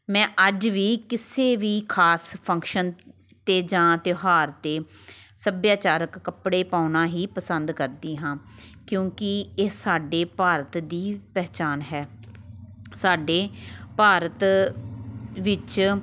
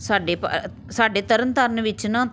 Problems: continuous background conversations